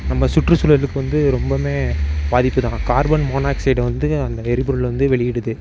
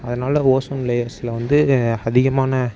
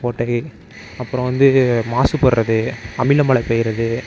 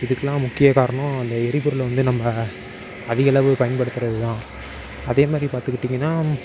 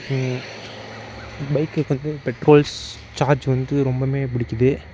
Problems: background sounds at intervals